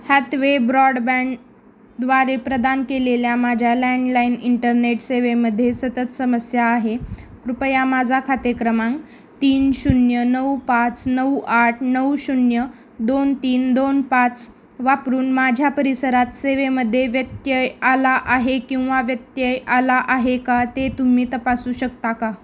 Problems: constant background noise